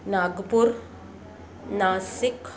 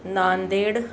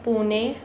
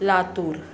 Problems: constant background noise, continuous background conversations